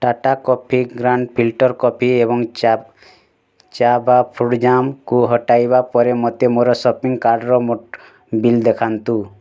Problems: constant background noise